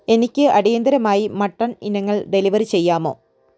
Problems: none marked